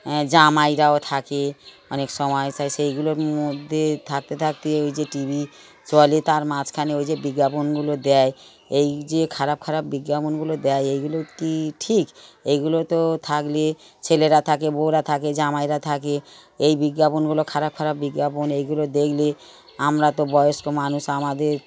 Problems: continuous background conversations